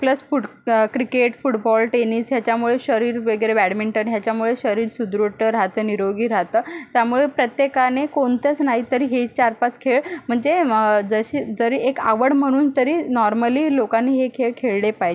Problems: constant background noise, background conversations at intervals